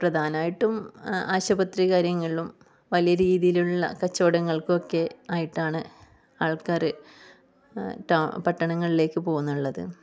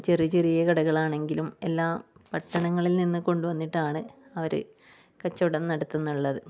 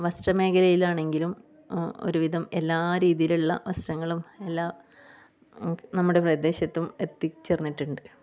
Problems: low volume